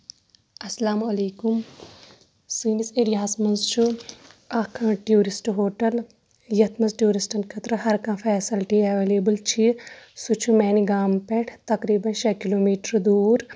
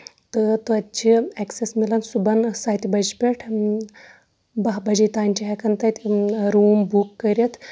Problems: background sounds at intervals